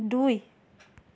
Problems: constant background noise